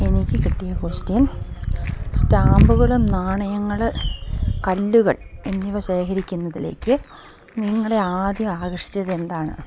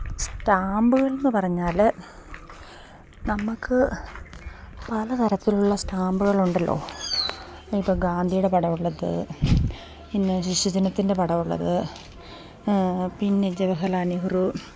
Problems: none marked